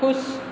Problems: constant background noise, echo